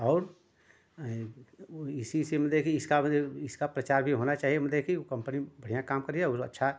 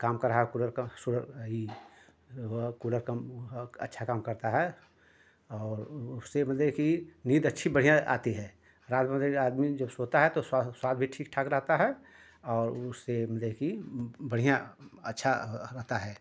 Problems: constant background noise